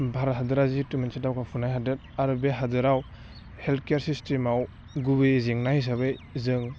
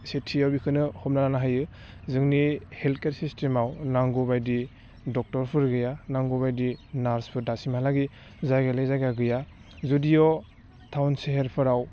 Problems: low volume